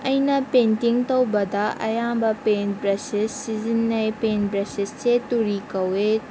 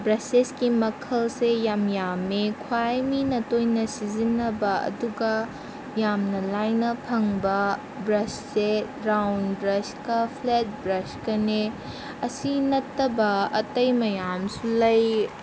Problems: constant background noise